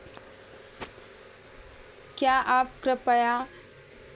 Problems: none marked